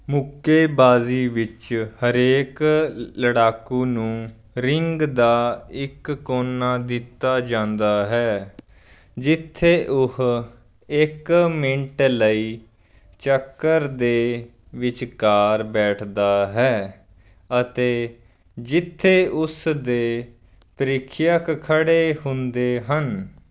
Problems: background sounds at intervals